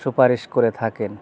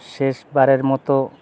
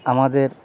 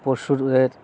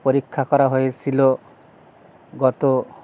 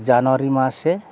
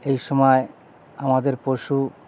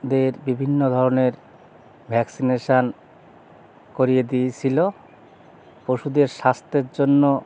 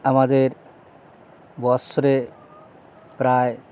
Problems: constant background noise